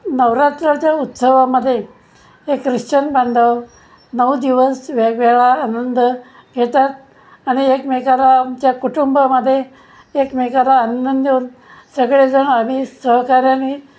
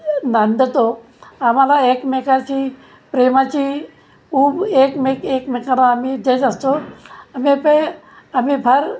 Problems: constant background noise